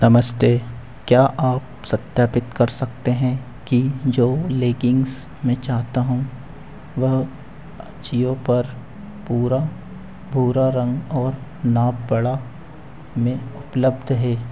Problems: constant background noise, echo